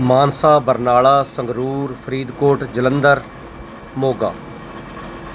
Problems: constant background noise